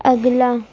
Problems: none marked